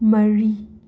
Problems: none marked